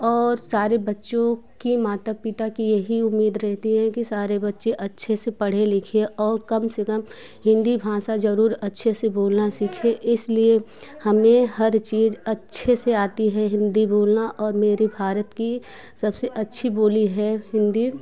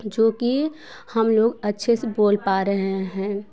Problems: background sounds at intervals, background conversations at intervals